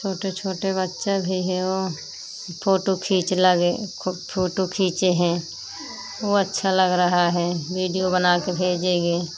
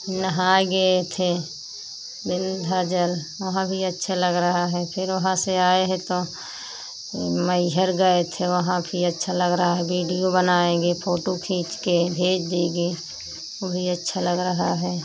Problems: constant background noise